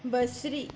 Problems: constant background noise